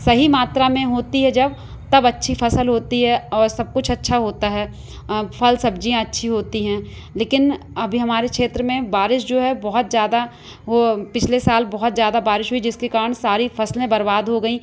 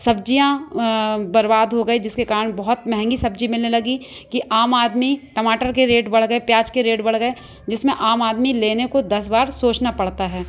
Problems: none marked